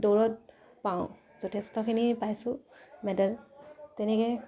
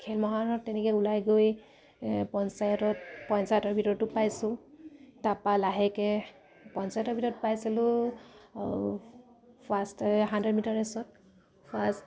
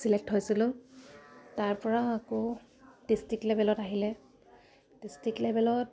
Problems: none marked